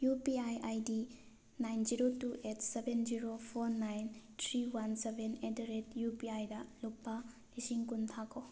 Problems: none marked